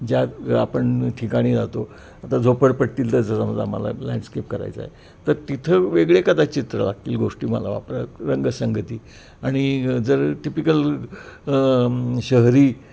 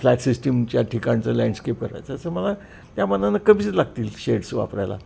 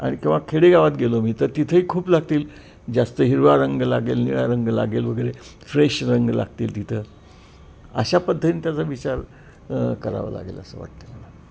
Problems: constant background noise